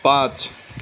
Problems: constant background noise